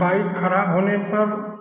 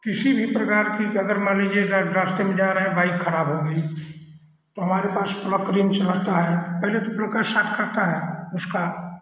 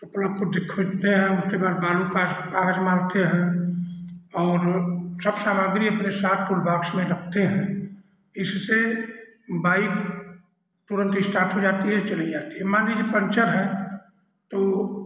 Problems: constant background noise